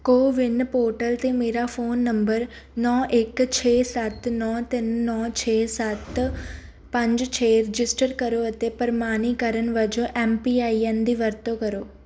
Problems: background sounds at intervals